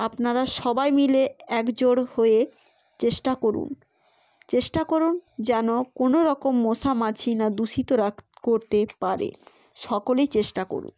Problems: none marked